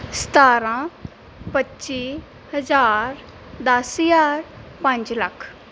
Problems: background sounds at intervals